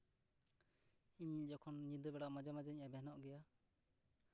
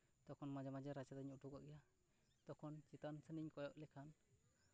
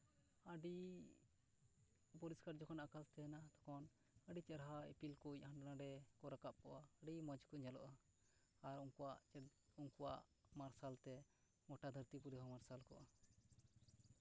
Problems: background sounds at intervals, low volume